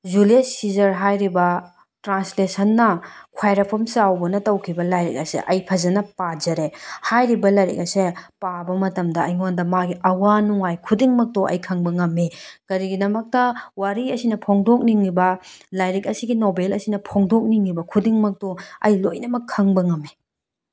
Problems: none marked